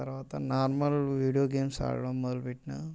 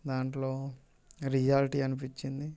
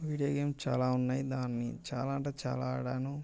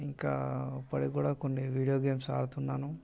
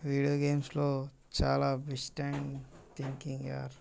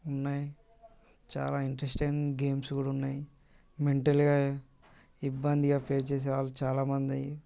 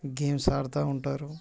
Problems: constant background noise, background conversations at intervals